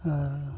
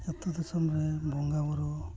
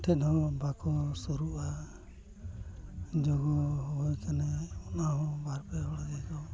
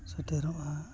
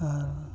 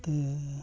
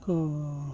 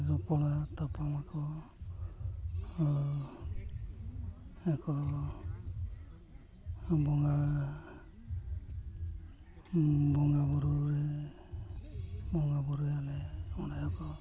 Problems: background sounds at intervals, continuous background conversations, low volume